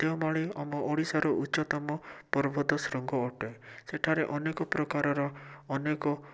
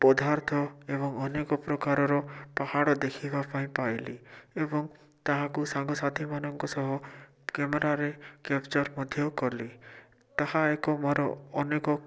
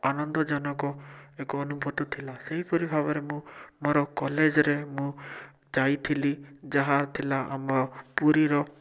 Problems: none marked